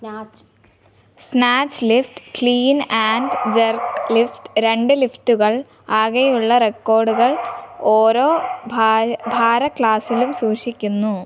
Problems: background sounds at intervals